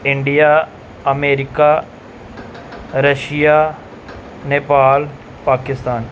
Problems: background sounds at intervals